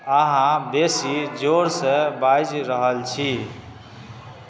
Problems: none marked